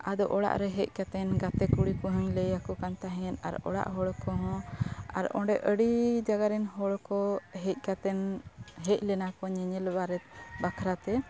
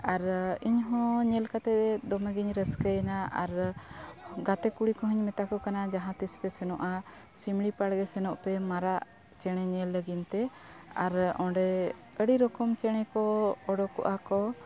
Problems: none marked